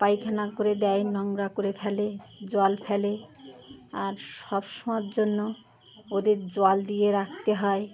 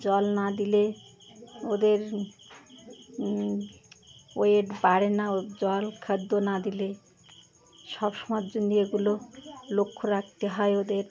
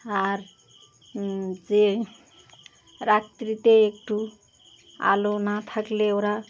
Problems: constant background noise, continuous background conversations